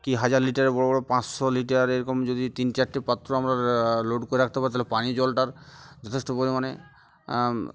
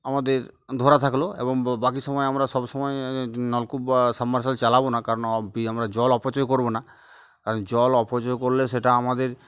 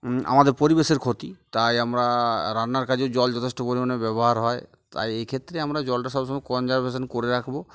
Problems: none marked